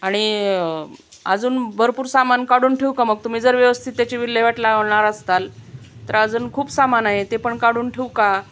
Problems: none marked